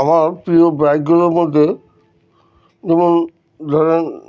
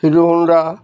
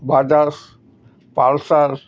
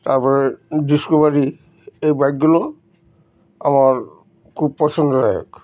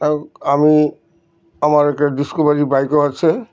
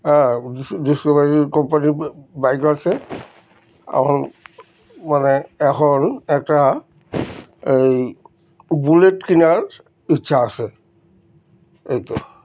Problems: background sounds at intervals